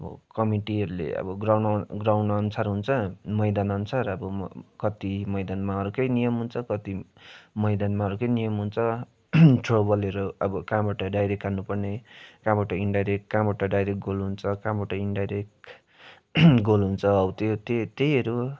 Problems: none marked